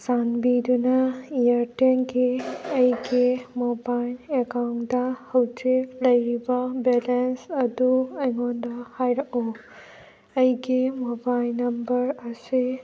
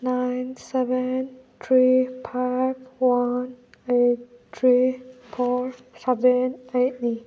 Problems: background sounds at intervals